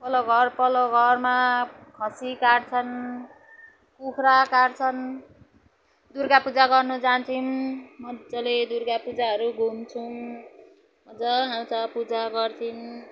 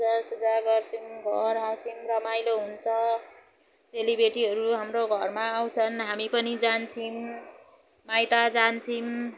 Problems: none marked